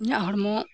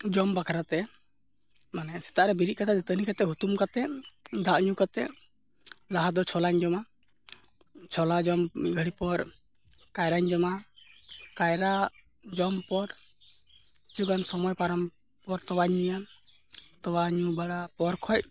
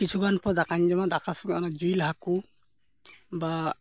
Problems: constant background noise